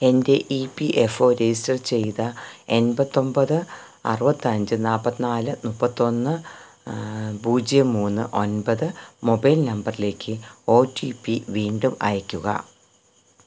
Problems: background sounds at intervals